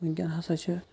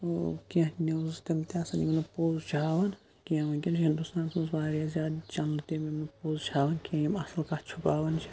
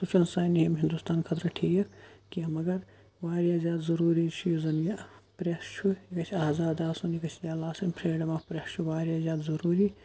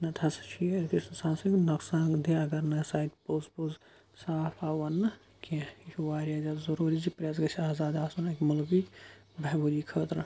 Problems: background sounds at intervals